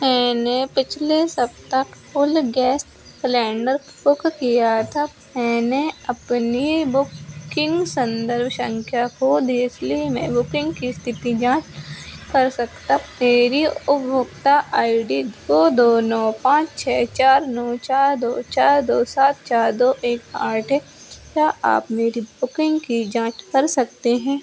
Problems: background sounds at intervals